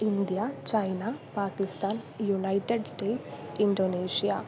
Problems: constant background noise